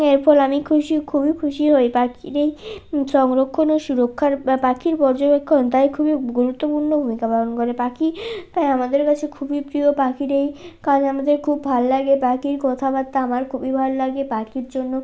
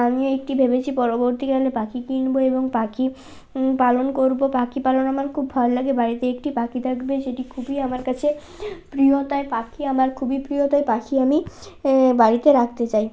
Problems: background sounds at intervals